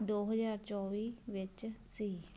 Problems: none marked